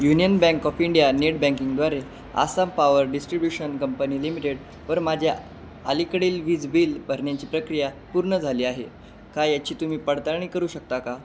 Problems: constant background noise, background conversations at intervals